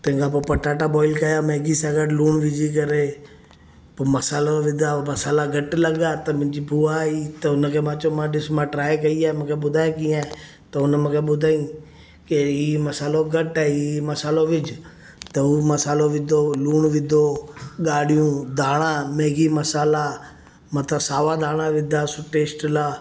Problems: constant background noise